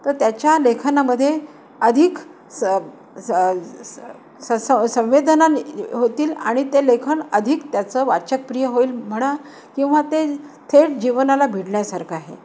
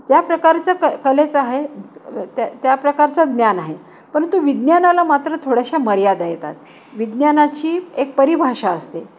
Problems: constant background noise